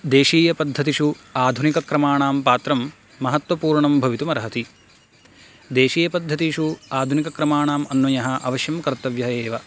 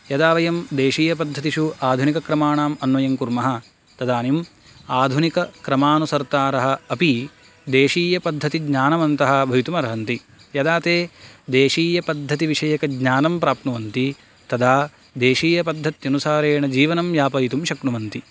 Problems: none marked